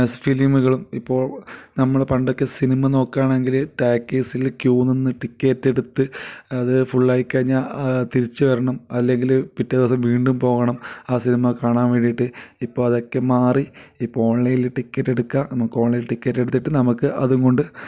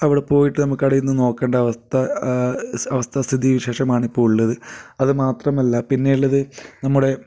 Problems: none marked